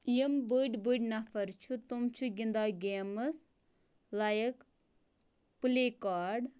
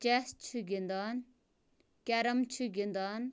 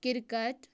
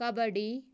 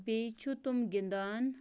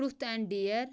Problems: low volume